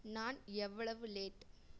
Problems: low volume